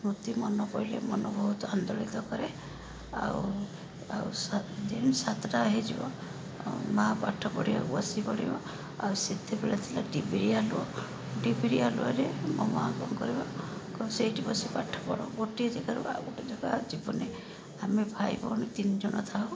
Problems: constant background noise